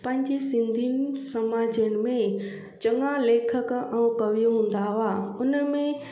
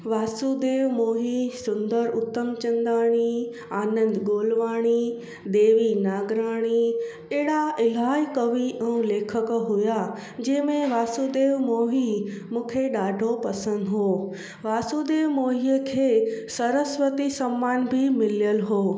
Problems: constant background noise, echo